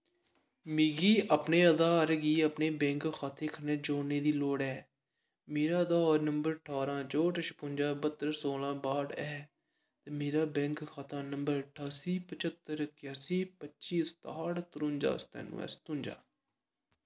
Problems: low volume